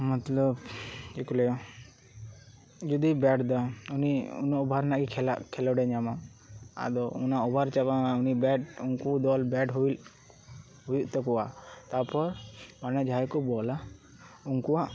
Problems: background conversations at intervals